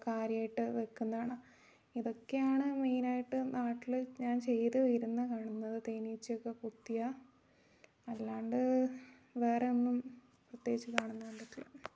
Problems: low volume